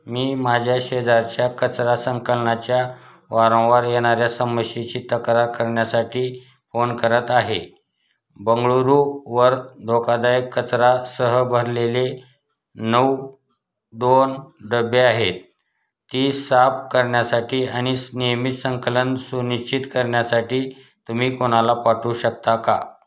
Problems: none marked